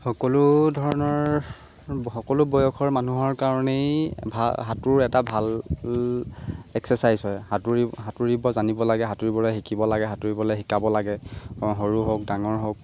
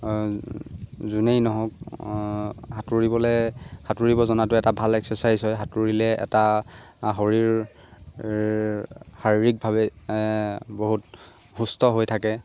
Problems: constant background noise